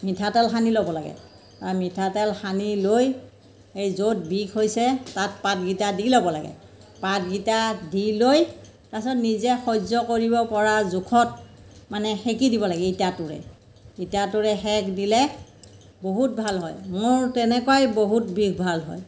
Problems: constant background noise